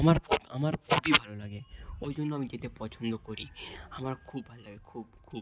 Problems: background sounds at intervals